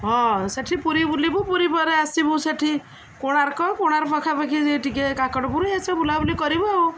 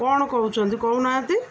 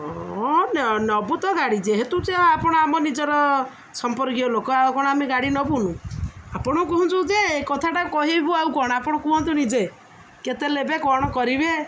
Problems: none marked